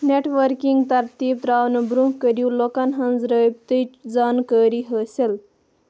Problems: none marked